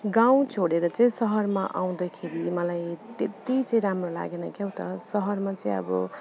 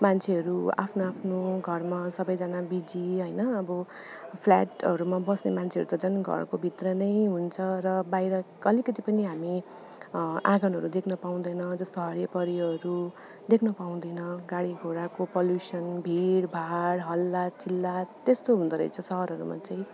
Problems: none marked